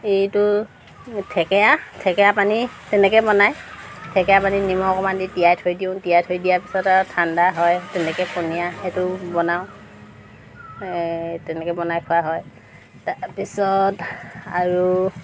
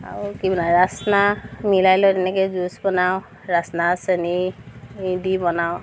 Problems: constant background noise